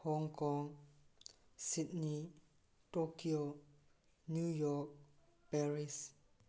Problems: none marked